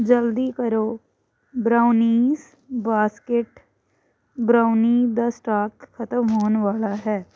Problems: none marked